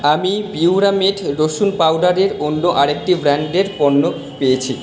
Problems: constant background noise